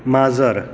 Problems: constant background noise